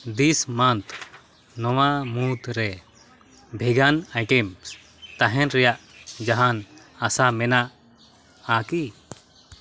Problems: none marked